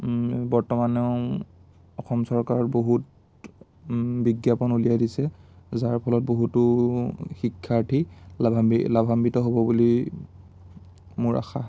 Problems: none marked